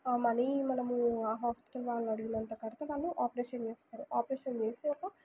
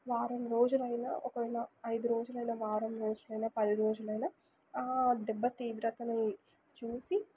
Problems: background sounds at intervals, low volume